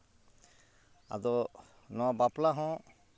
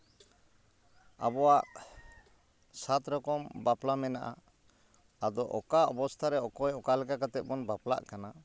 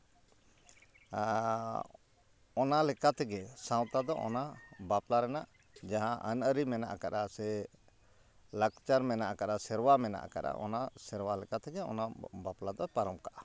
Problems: background sounds at intervals